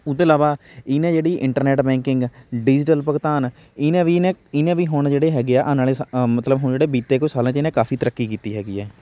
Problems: none marked